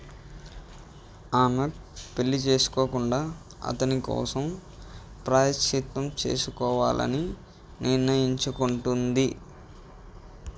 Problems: none marked